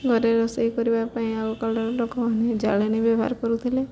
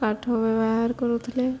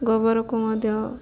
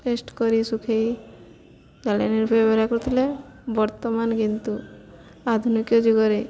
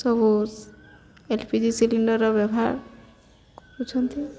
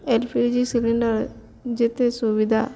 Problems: none marked